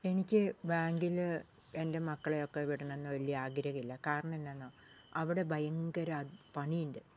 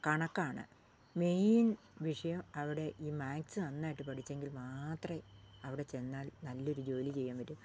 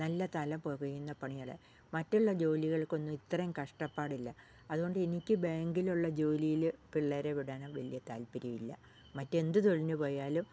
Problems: low volume